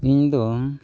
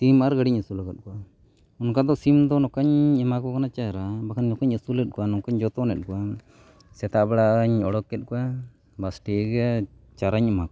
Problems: constant background noise